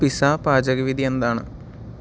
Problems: none marked